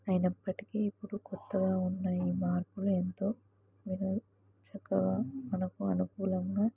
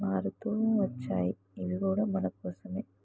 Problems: background sounds at intervals, low volume